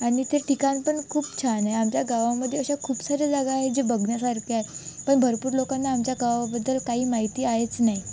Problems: constant background noise